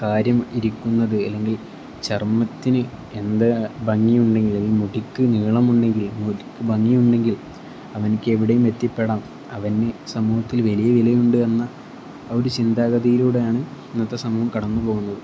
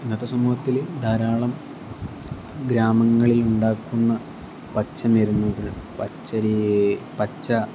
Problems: constant background noise, low volume